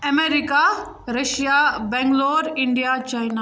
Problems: none marked